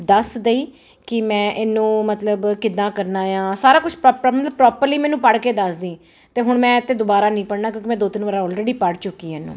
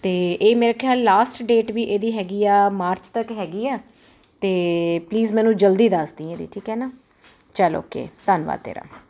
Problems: none marked